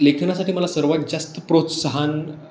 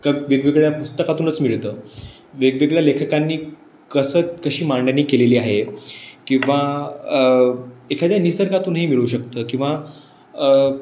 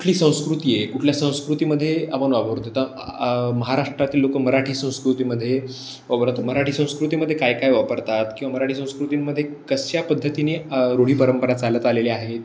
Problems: background sounds at intervals